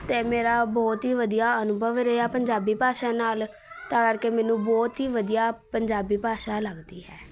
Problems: continuous background conversations